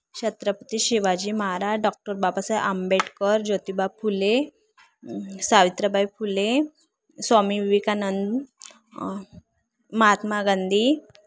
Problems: none marked